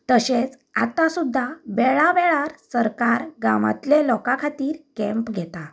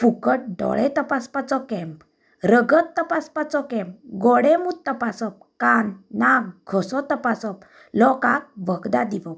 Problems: background sounds at intervals